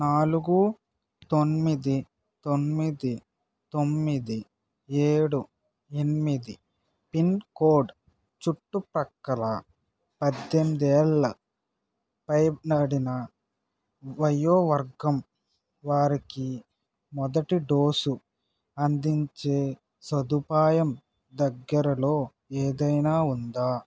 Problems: background sounds at intervals